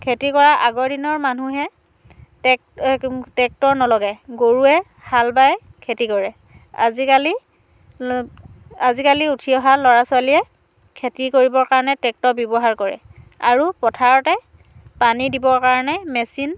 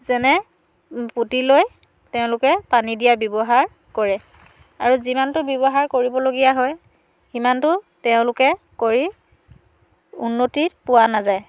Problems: none marked